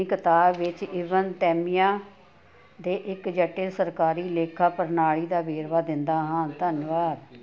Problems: continuous background conversations